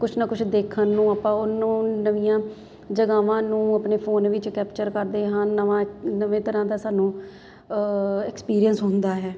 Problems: none marked